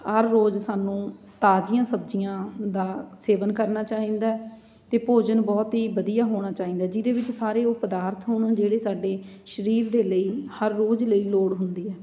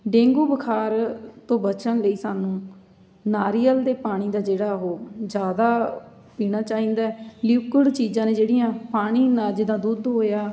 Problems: background sounds at intervals